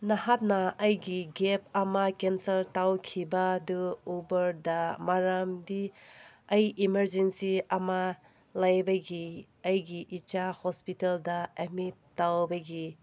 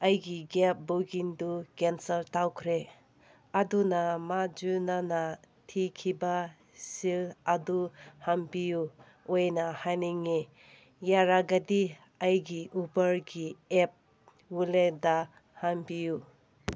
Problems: none marked